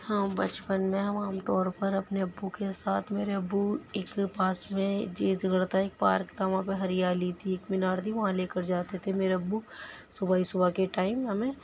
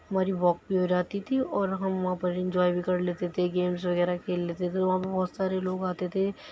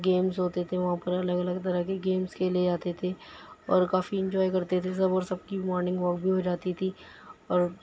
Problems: none marked